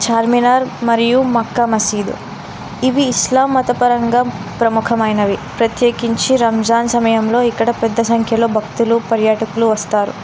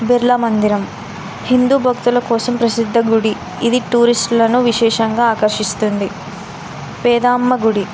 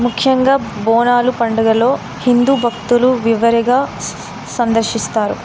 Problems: constant background noise